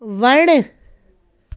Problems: none marked